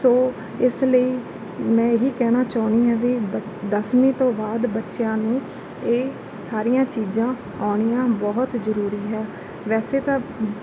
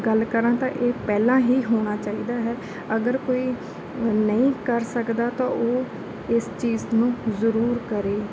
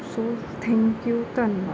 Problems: background sounds at intervals